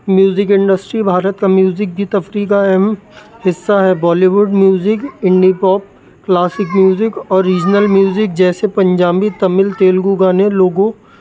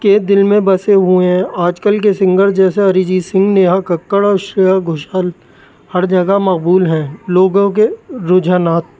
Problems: constant background noise